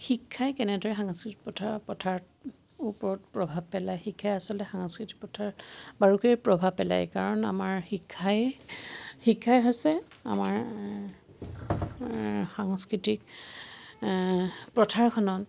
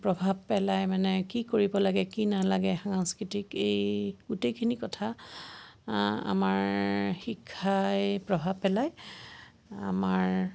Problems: constant background noise, background conversations at intervals